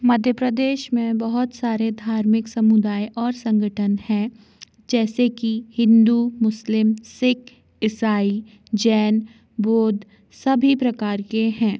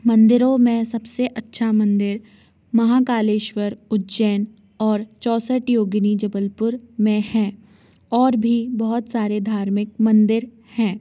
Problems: constant background noise